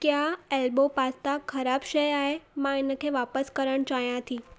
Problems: constant background noise, echo